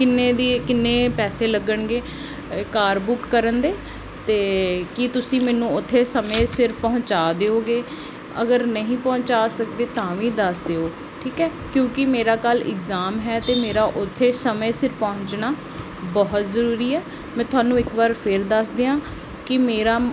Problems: none marked